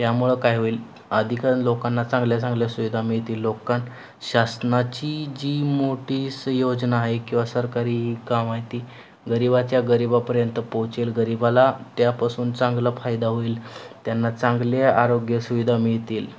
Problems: none marked